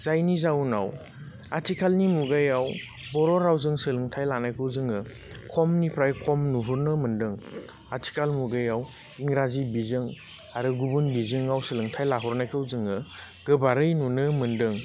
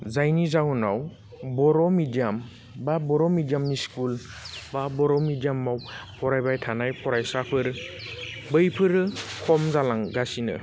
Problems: constant background noise